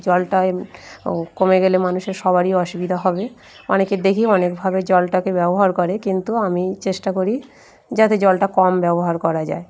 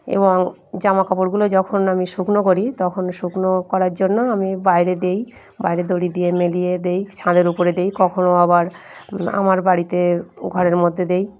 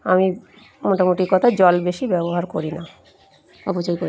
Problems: background sounds at intervals